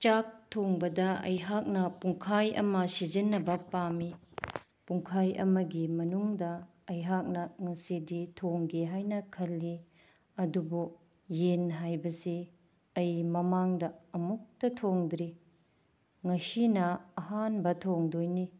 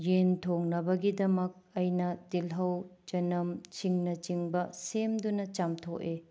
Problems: none marked